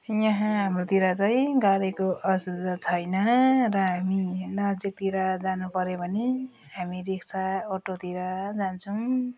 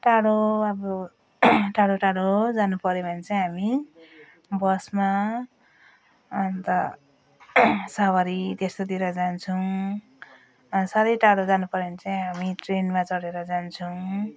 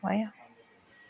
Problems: none marked